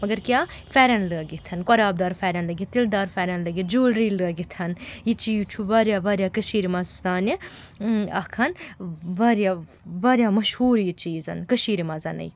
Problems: constant background noise